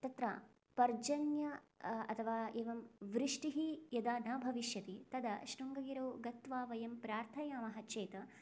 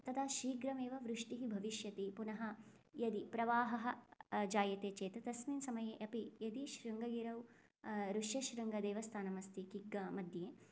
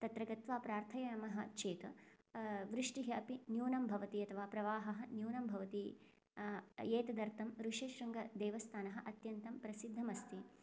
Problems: low volume